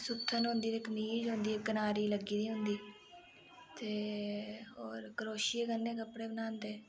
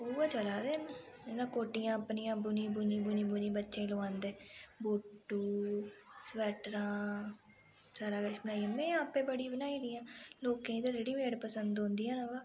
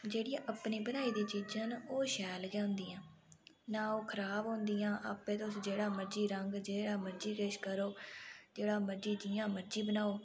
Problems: constant background noise